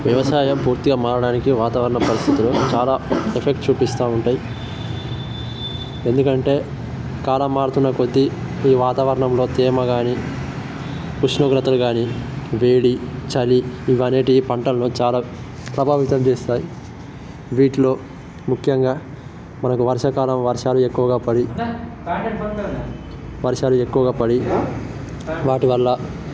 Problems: constant background noise